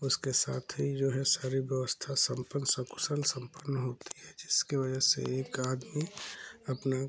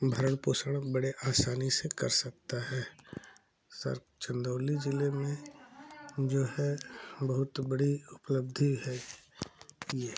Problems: constant background noise, continuous background conversations